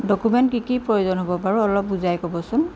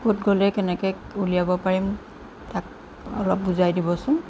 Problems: background sounds at intervals